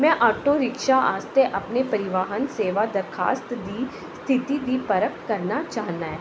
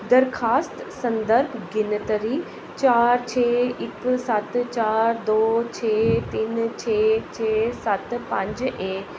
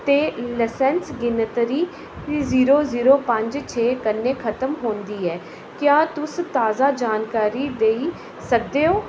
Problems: constant background noise